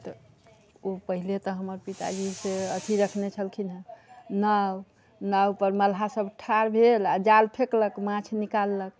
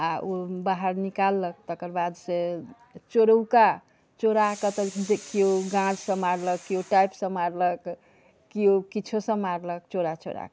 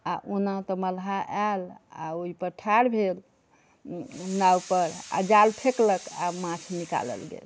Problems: background conversations at intervals